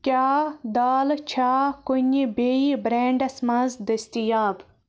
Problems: none marked